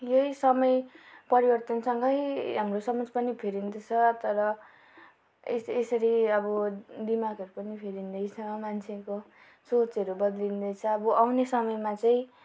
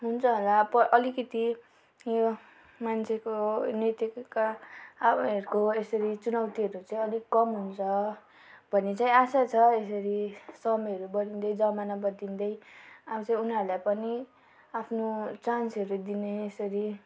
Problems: background conversations at intervals